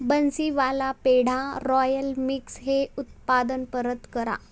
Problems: constant background noise